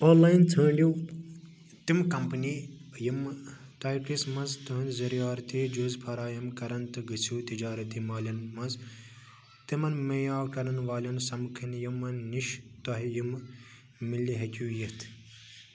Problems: constant background noise